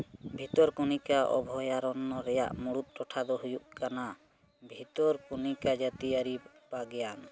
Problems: background sounds at intervals